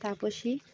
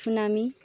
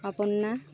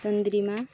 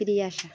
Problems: constant background noise, continuous background conversations